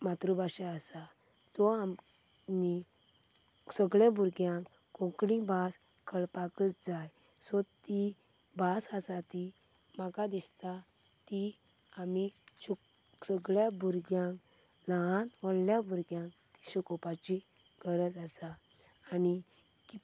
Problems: none marked